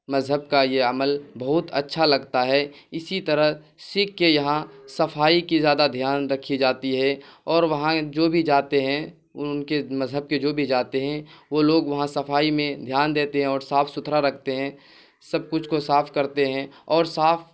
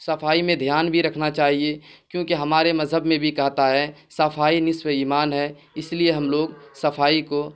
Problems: constant background noise